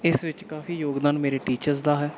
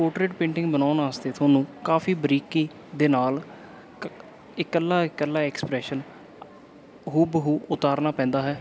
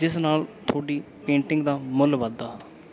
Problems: none marked